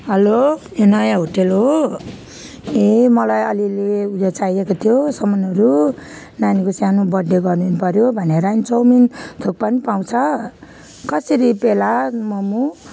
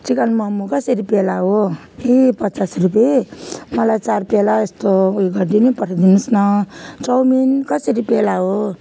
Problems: background sounds at intervals